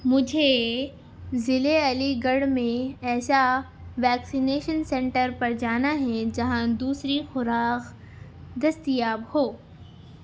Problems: none marked